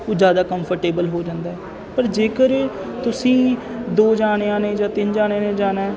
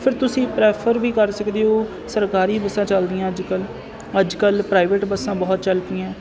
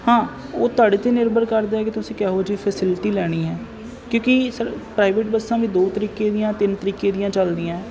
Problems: constant background noise